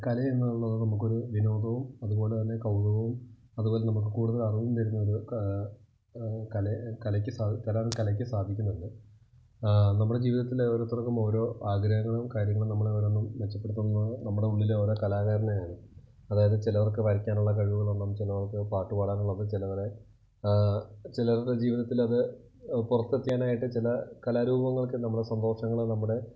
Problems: low volume